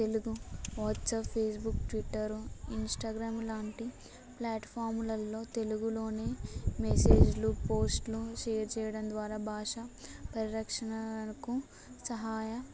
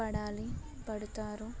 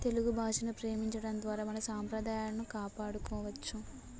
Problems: background sounds at intervals, background conversations at intervals